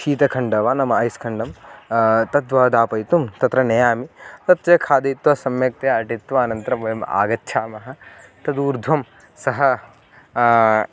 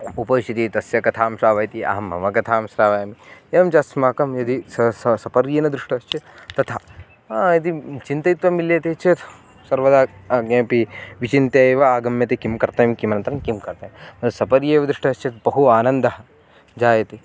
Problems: none marked